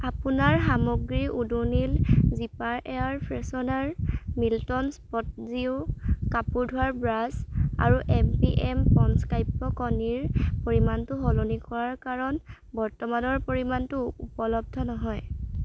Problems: constant background noise